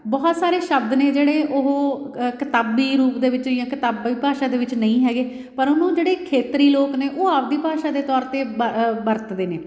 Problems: background sounds at intervals